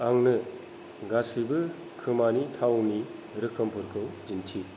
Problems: low volume